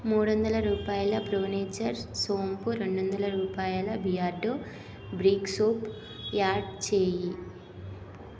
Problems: background sounds at intervals